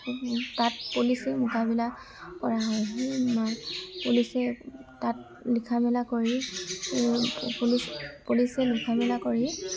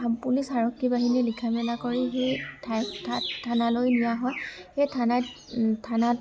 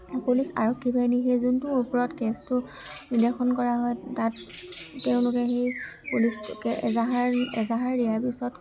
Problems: constant background noise, background conversations at intervals